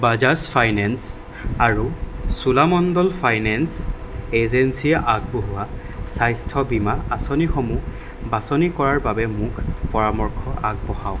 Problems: constant background noise